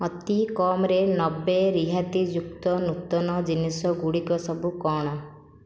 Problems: none marked